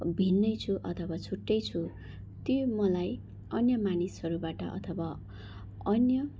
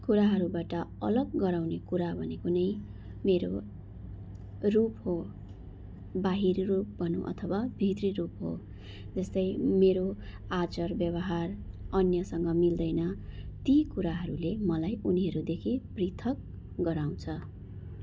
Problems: background sounds at intervals